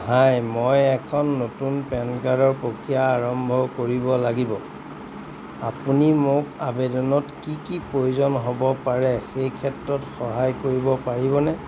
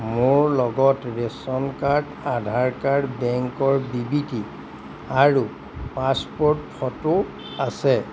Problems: none marked